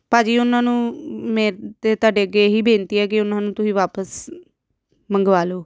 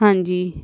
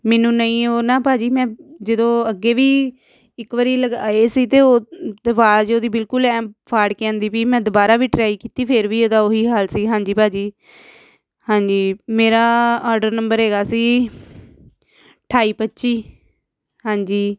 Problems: none marked